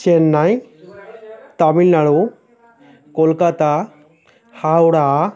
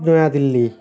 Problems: constant background noise